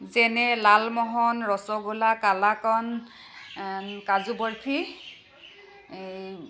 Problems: constant background noise, echo